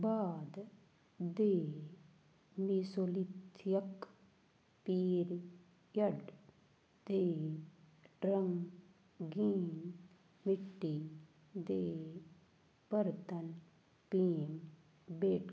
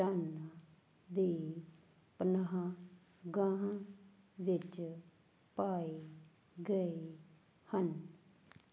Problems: background sounds at intervals